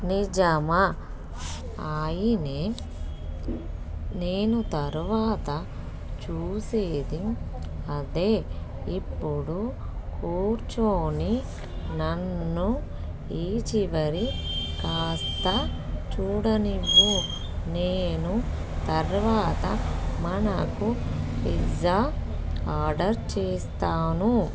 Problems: background sounds at intervals